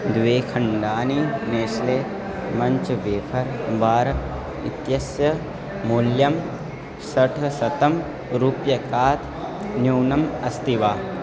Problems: background sounds at intervals